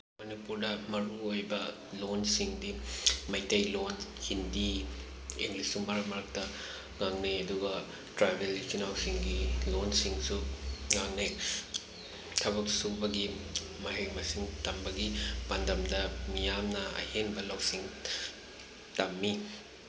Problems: constant background noise